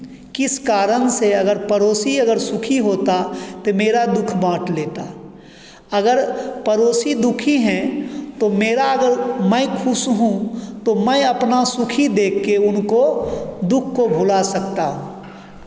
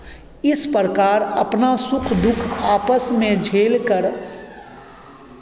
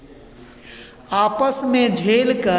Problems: constant background noise, echo